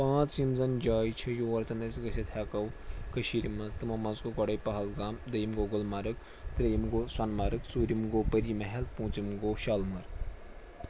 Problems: none marked